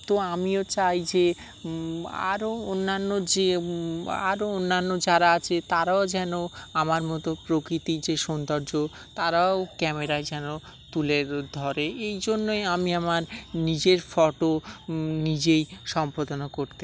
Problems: background sounds at intervals, background conversations at intervals